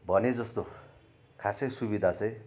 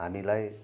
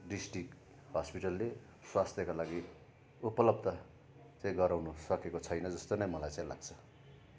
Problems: constant background noise